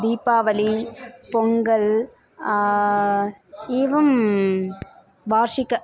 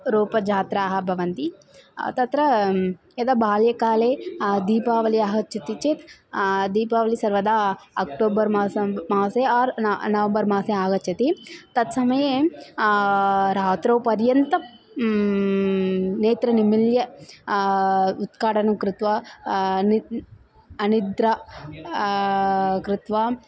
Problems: constant background noise, continuous background conversations